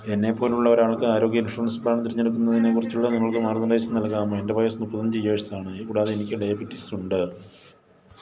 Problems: none marked